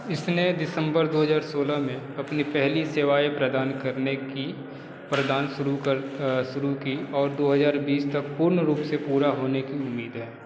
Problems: none marked